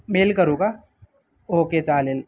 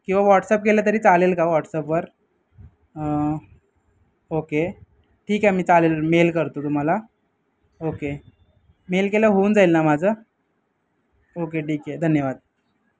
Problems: background sounds at intervals